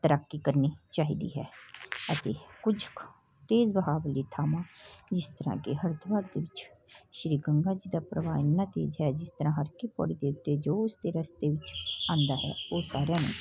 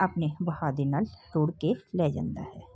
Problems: background sounds at intervals